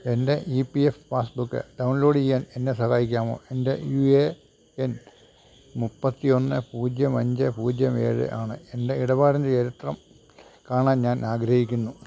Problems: none marked